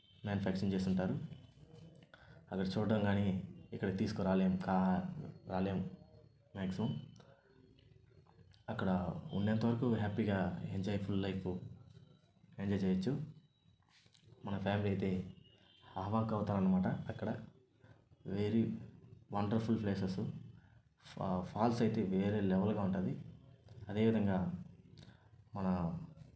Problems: none marked